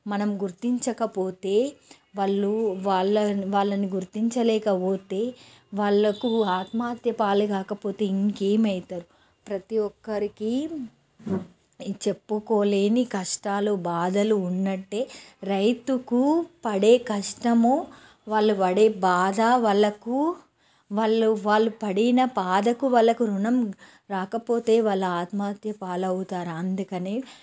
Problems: none marked